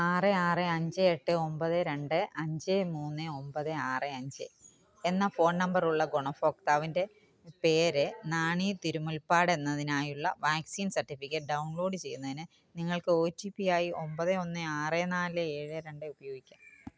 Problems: background sounds at intervals